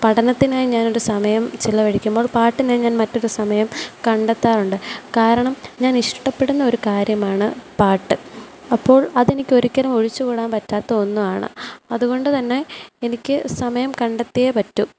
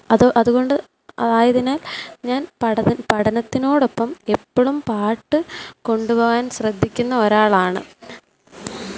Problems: background sounds at intervals